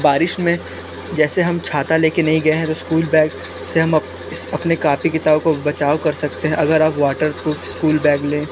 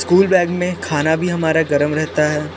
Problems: constant background noise